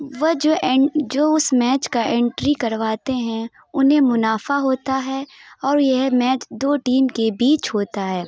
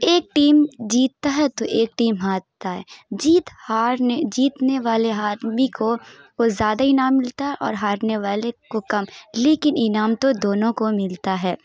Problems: background sounds at intervals